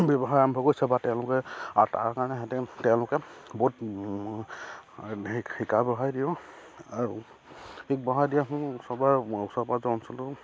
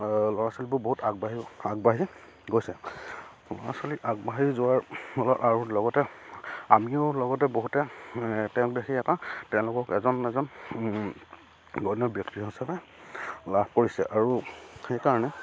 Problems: none marked